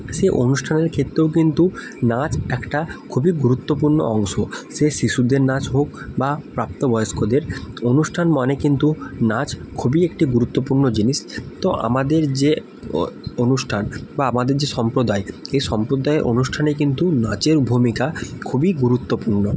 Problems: constant background noise